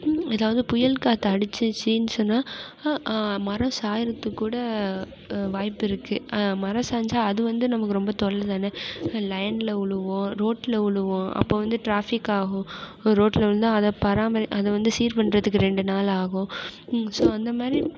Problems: constant background noise